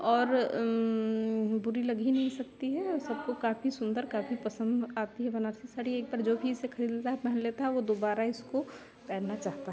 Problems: constant background noise